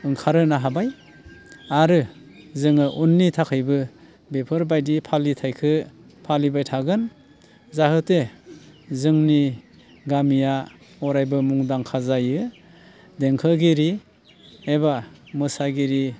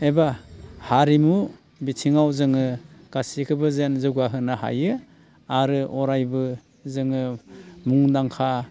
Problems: constant background noise